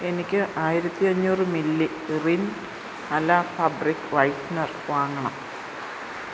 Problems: none marked